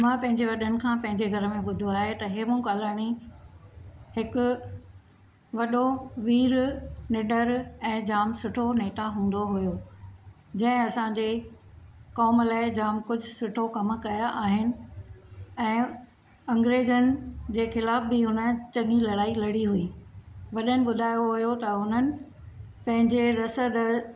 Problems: none marked